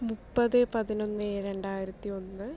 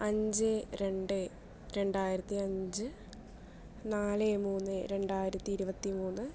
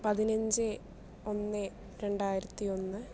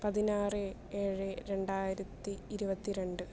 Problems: low volume